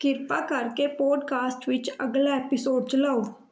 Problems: background sounds at intervals, background conversations at intervals